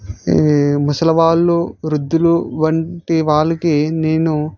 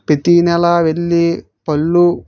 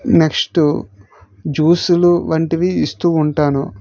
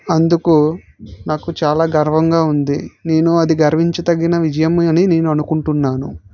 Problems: none marked